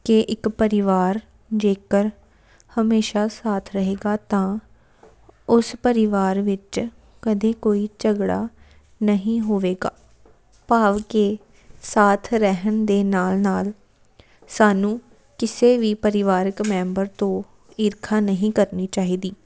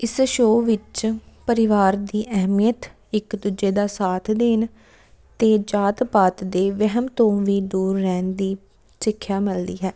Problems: background sounds at intervals